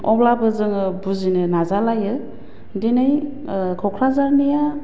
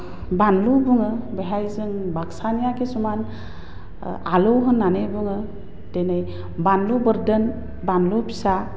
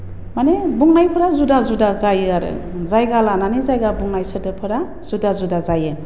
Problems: low volume